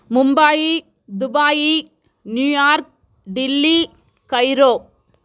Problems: none marked